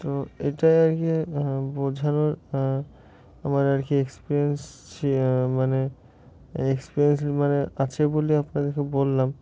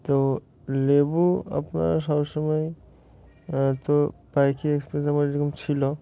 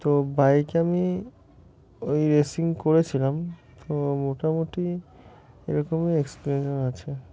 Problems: constant background noise, continuous background conversations